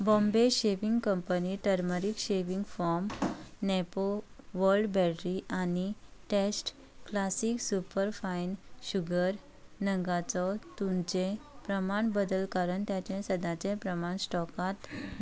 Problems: none marked